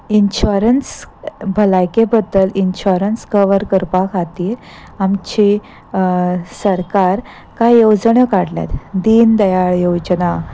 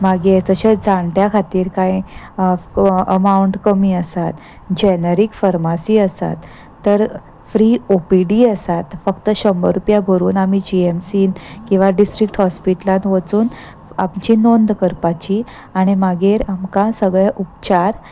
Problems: constant background noise